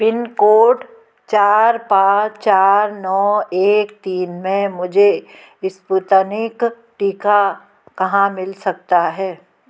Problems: background sounds at intervals